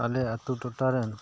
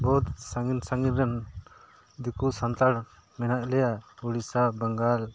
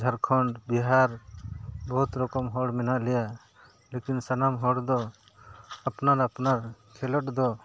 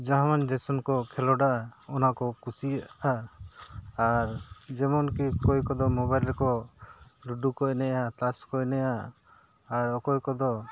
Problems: background sounds at intervals